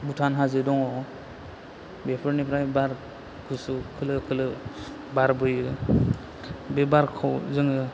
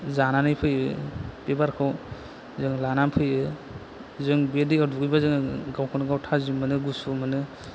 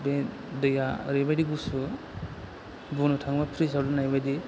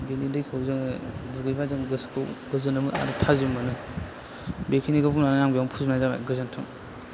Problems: constant background noise